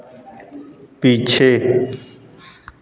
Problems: constant background noise, continuous background conversations